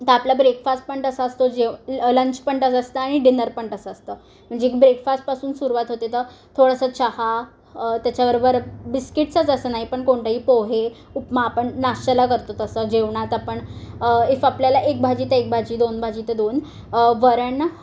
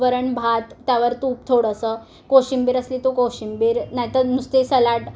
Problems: none marked